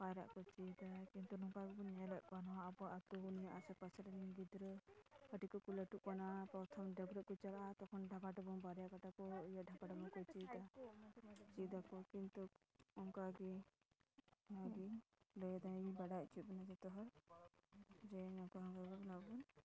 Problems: background sounds at intervals, low volume